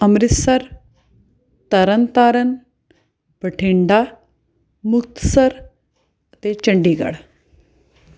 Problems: none marked